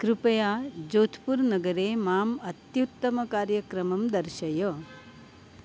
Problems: constant background noise